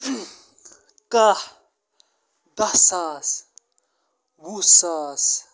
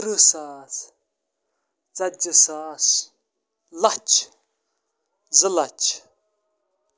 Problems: constant background noise